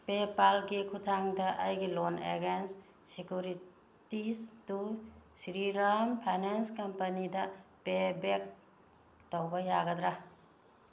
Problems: none marked